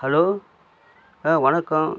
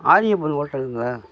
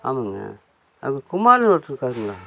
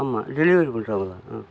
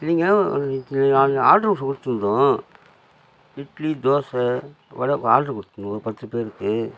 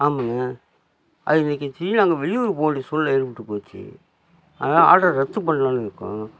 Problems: constant background noise